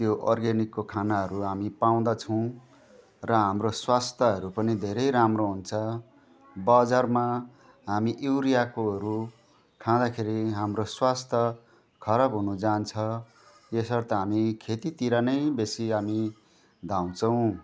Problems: constant background noise, continuous background conversations